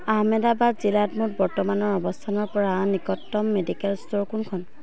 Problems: background conversations at intervals